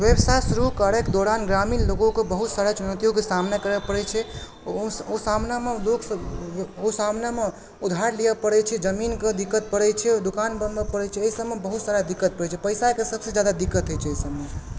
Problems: background sounds at intervals